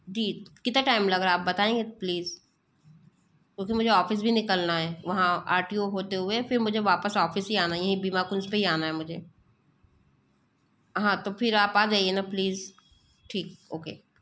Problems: none marked